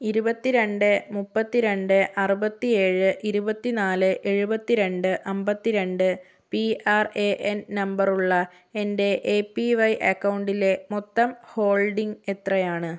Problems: low volume